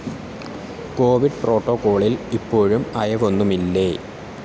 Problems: constant background noise